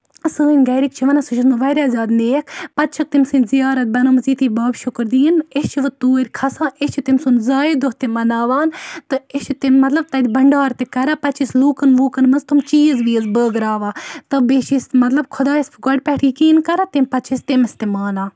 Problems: none marked